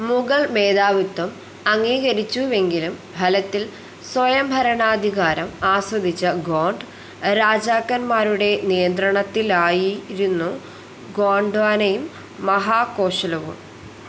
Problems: constant background noise